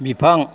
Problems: none marked